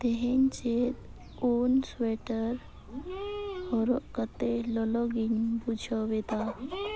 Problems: constant background noise